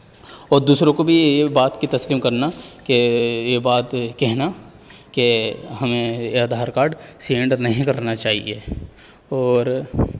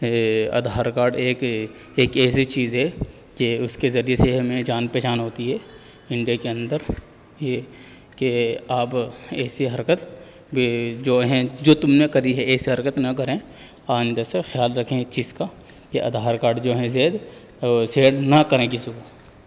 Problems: background sounds at intervals